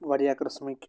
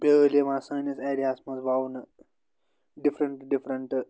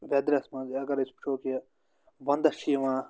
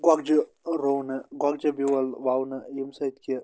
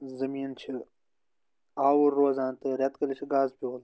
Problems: constant background noise